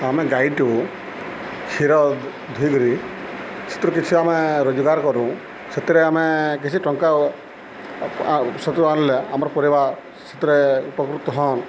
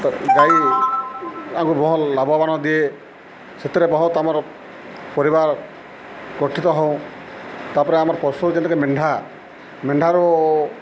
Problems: none marked